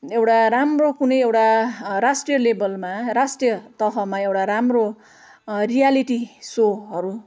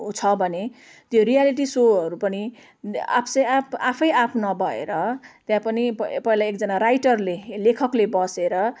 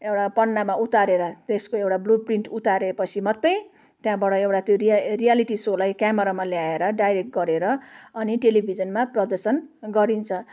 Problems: none marked